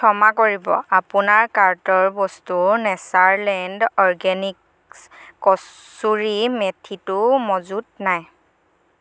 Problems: none marked